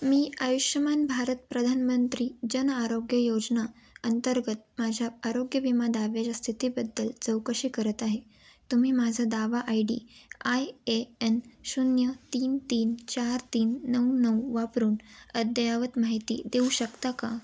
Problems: none marked